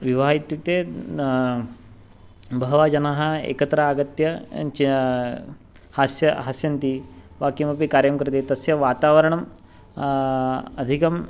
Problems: background sounds at intervals